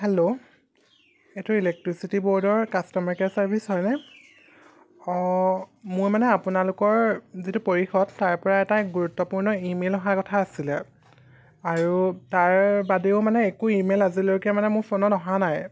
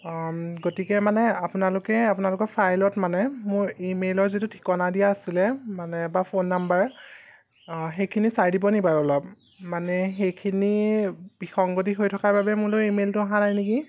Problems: none marked